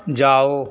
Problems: constant background noise